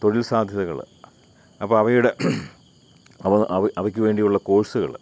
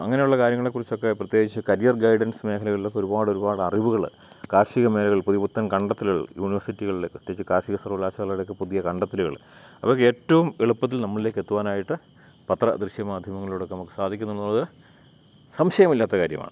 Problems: none marked